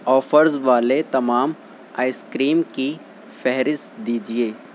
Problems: constant background noise